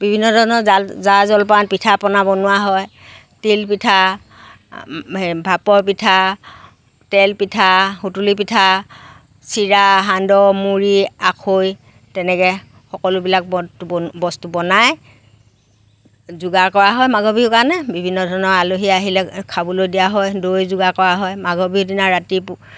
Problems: none marked